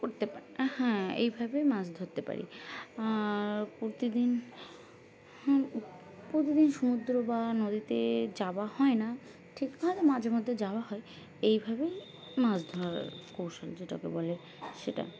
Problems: none marked